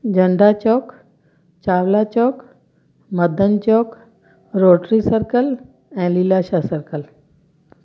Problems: constant background noise